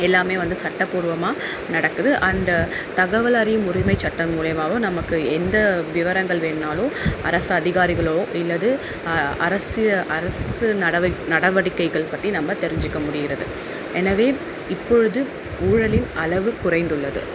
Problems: background sounds at intervals